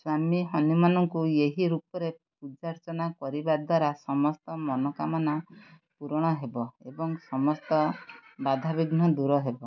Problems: none marked